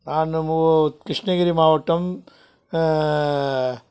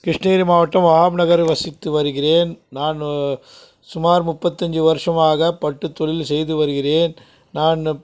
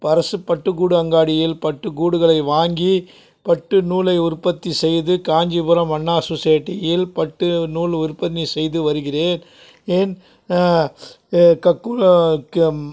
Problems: background sounds at intervals